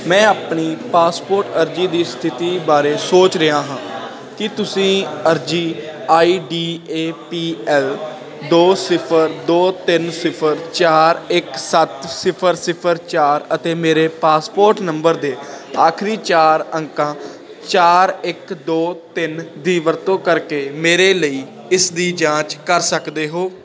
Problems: constant background noise